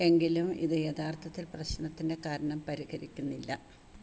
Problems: constant background noise, low volume